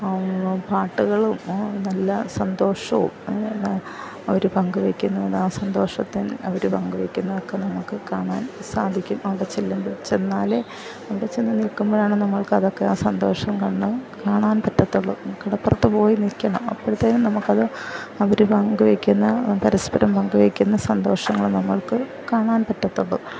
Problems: background sounds at intervals, low volume